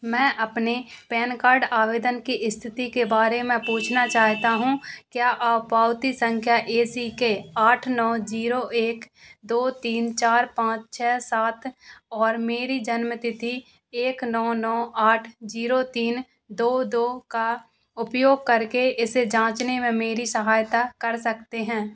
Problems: none marked